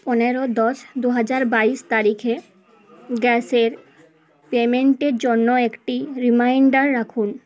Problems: constant background noise